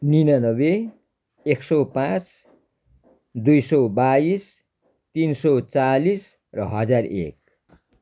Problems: constant background noise